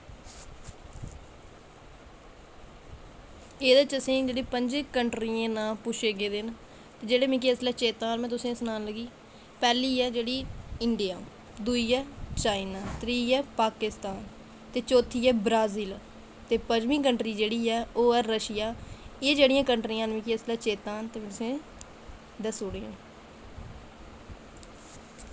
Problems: constant background noise